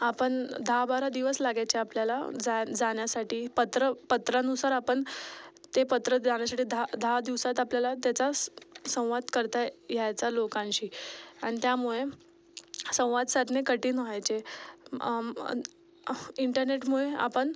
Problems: background sounds at intervals, background conversations at intervals